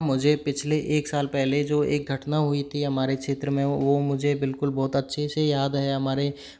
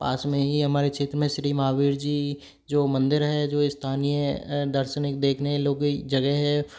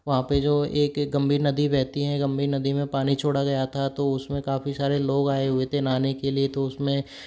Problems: constant background noise